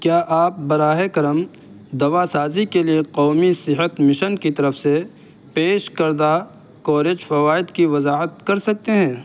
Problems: constant background noise